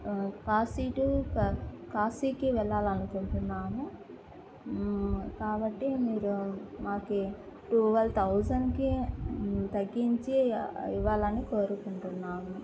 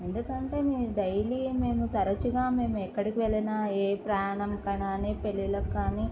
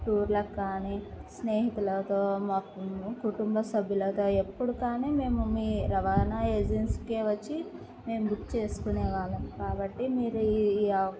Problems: low volume